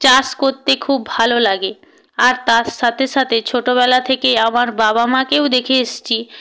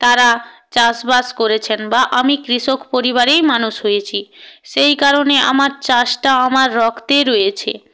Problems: none marked